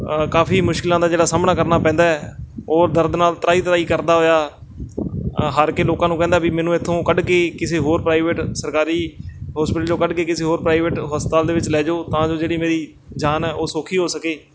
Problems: constant background noise